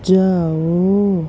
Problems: constant background noise